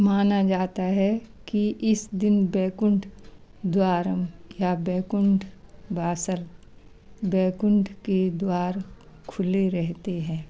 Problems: constant background noise